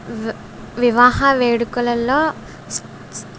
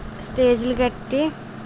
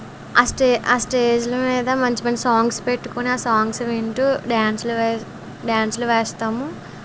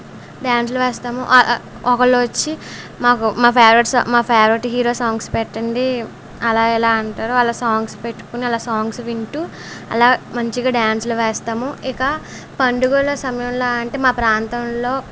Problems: background conversations at intervals